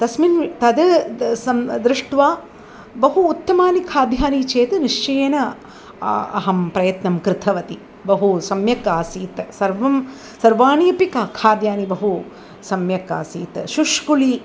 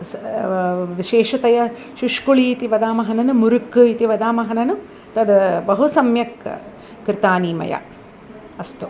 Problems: none marked